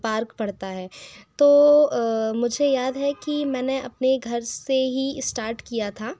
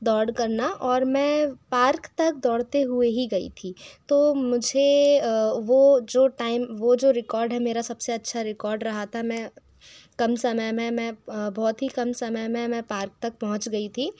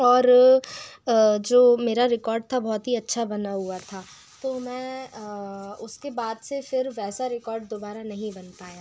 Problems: constant background noise, echo